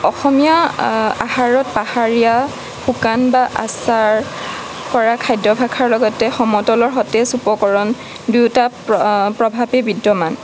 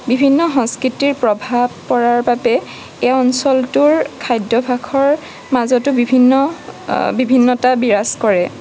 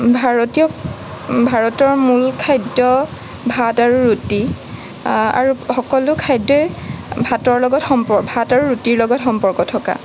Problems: background sounds at intervals